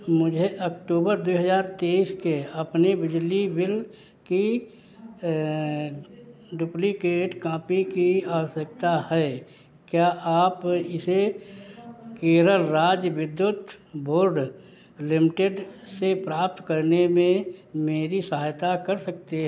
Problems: background sounds at intervals, echo